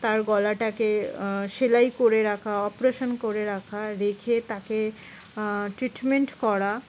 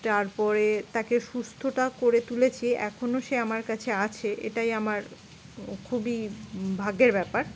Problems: constant background noise